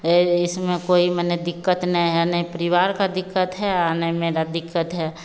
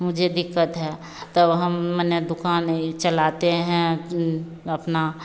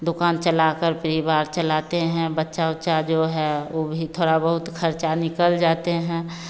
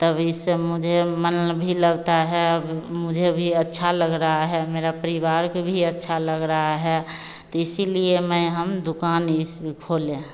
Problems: none marked